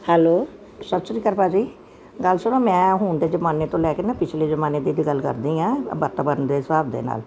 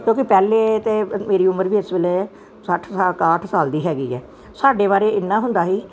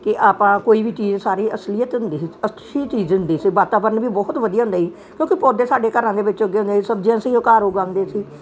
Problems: none marked